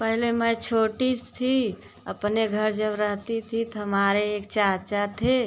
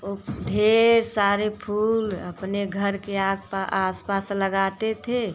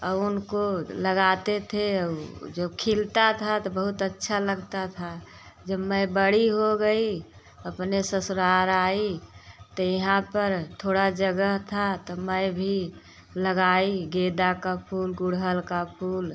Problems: constant background noise